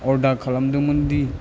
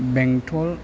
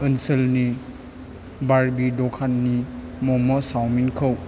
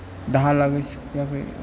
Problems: low volume